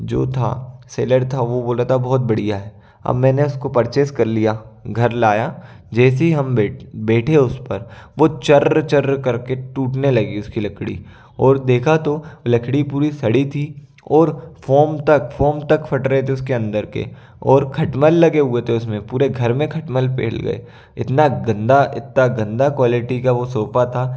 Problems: none marked